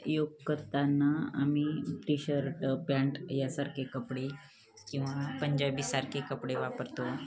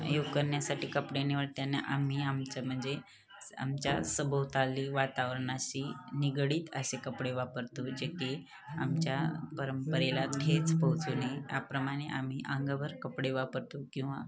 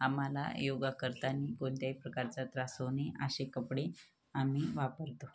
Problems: constant background noise, continuous background conversations, low volume